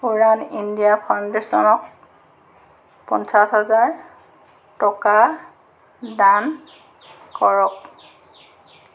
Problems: background sounds at intervals